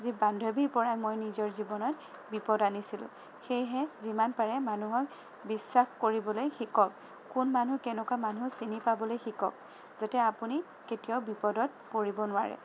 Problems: none marked